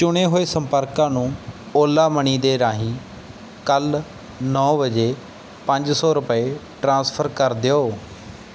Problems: background sounds at intervals